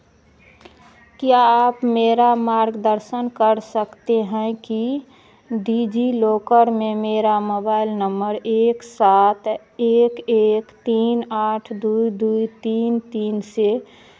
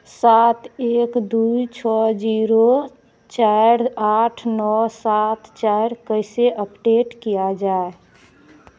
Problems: constant background noise